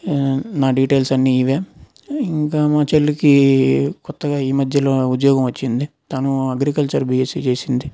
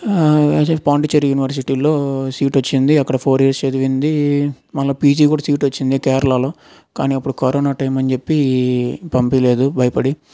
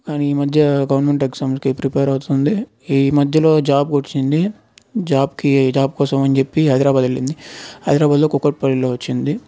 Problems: none marked